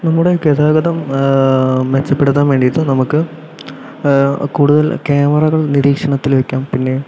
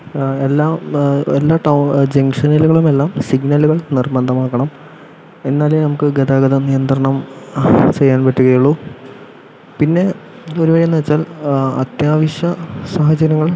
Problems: constant background noise